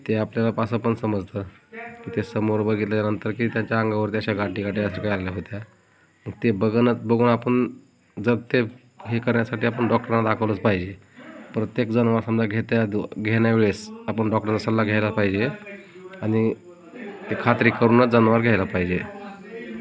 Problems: none marked